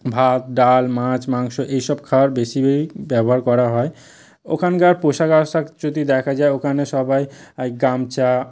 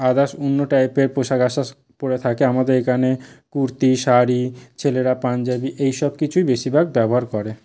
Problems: none marked